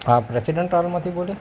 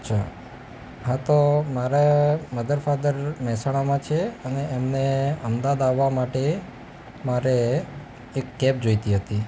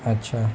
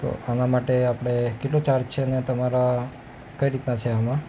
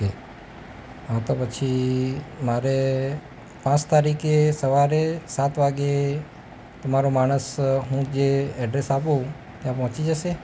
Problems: constant background noise